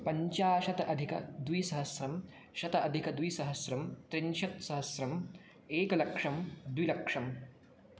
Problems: none marked